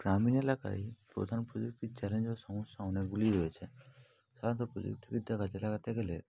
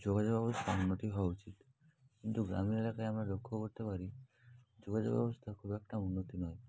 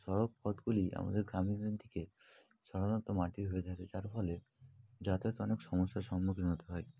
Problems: background sounds at intervals, continuous background conversations